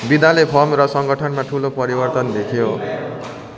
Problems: continuous background conversations